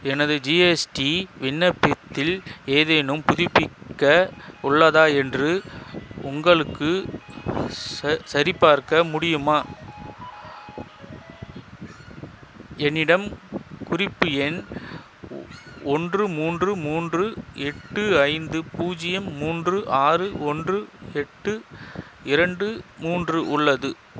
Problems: constant background noise, background conversations at intervals